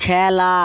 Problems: none marked